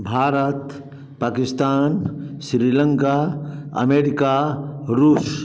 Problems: none marked